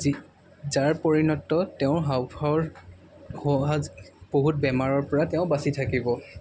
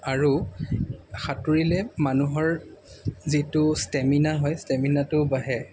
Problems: background sounds at intervals